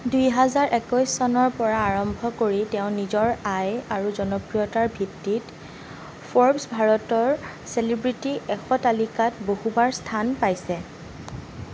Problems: constant background noise